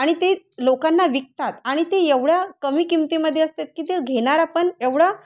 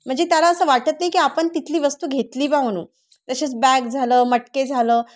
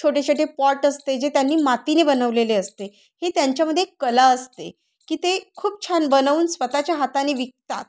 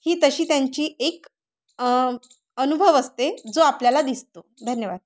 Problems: background sounds at intervals